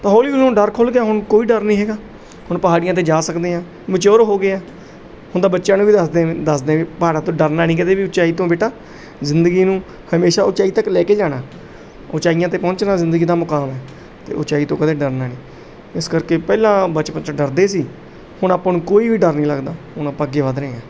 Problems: background sounds at intervals